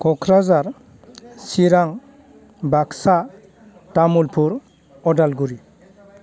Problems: low volume